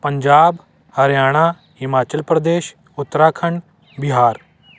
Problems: constant background noise